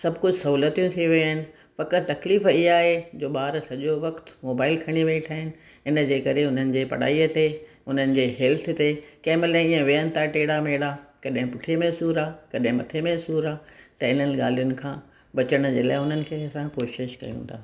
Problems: none marked